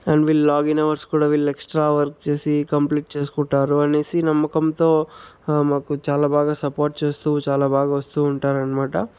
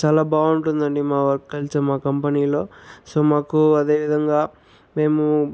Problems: background sounds at intervals